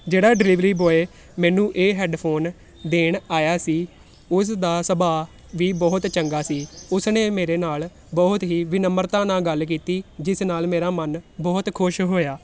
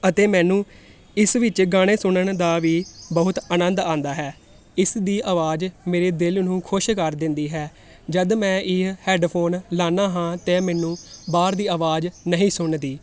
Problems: constant background noise